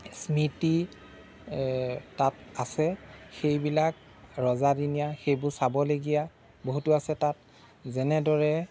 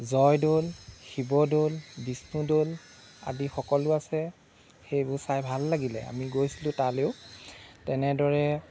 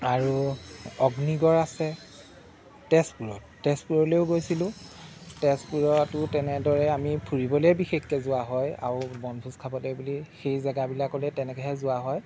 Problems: none marked